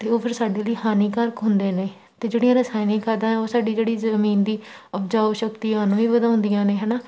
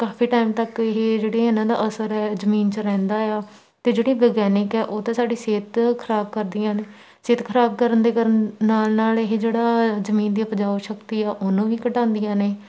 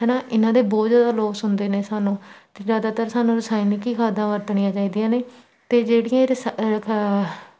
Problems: none marked